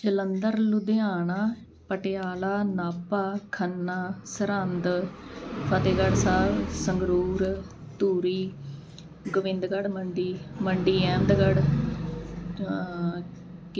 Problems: background sounds at intervals